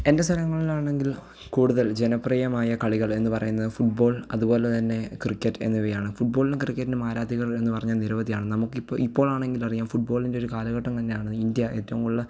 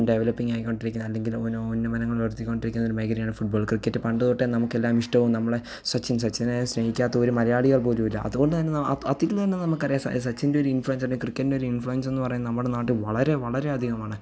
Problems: low volume